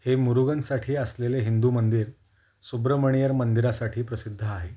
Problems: none marked